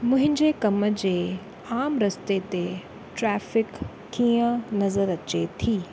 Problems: constant background noise